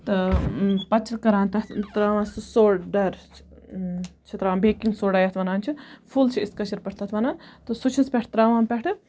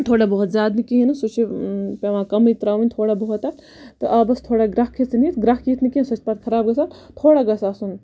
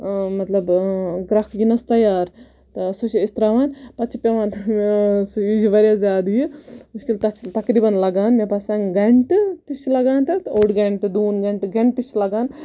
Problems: constant background noise